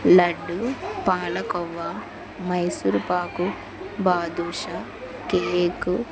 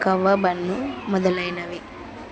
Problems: constant background noise, background conversations at intervals